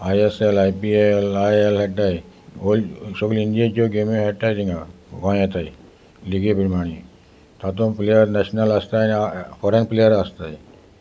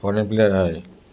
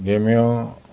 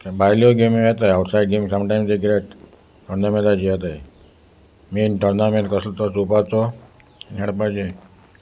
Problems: constant background noise